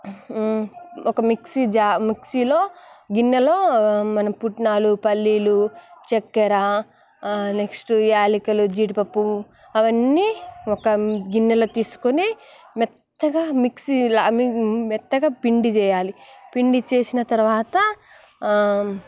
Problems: constant background noise, background conversations at intervals